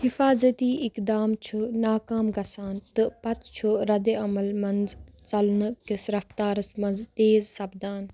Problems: none marked